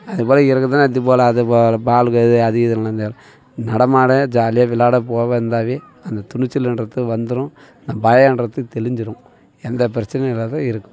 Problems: continuous background conversations